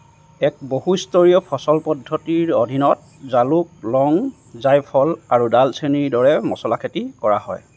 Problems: none marked